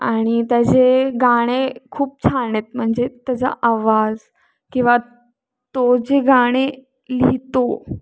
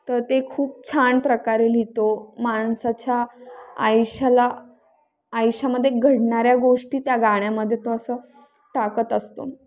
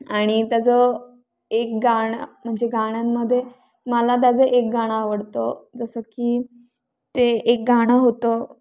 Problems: background sounds at intervals